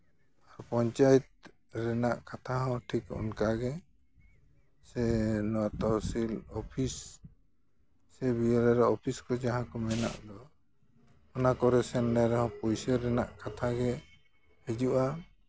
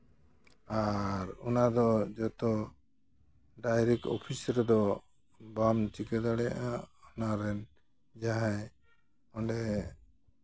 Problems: none marked